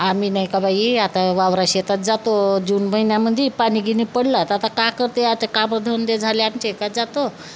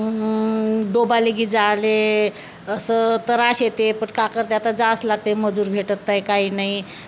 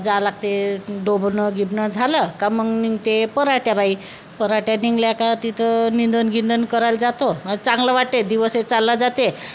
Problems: none marked